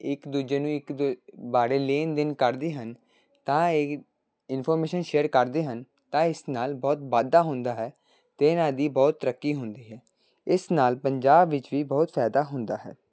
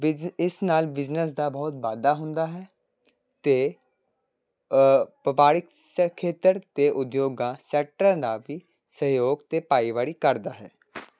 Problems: background sounds at intervals